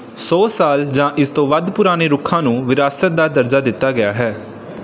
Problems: background sounds at intervals